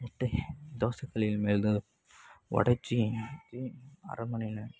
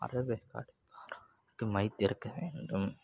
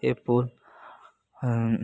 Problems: background sounds at intervals